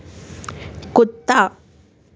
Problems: none marked